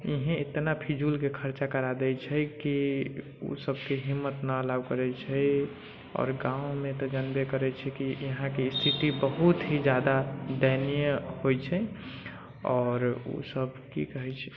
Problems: background sounds at intervals